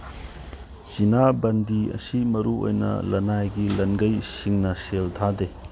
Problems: background sounds at intervals